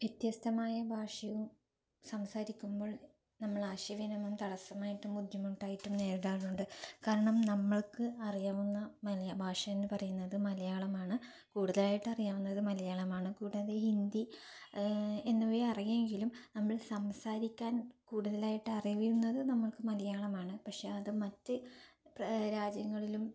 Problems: low volume